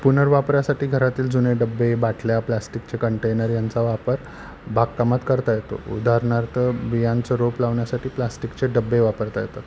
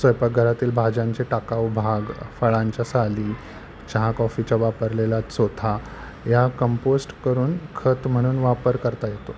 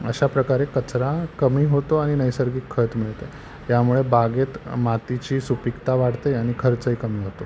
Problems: none marked